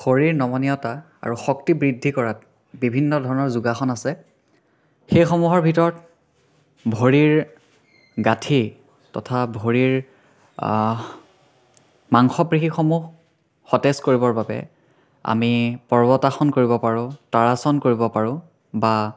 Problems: none marked